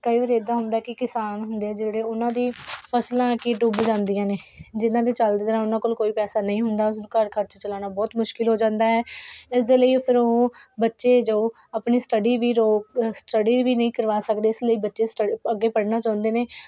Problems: none marked